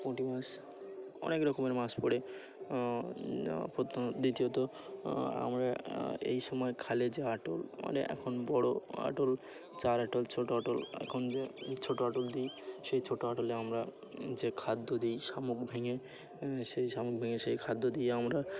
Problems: constant background noise, continuous background conversations